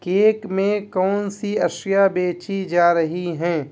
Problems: none marked